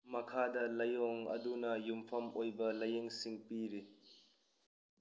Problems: constant background noise